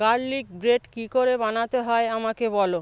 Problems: none marked